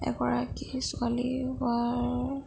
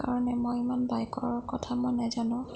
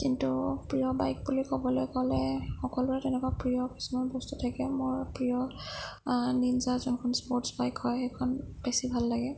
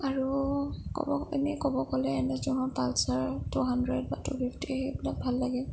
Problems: low volume